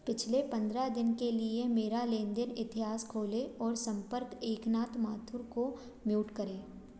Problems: none marked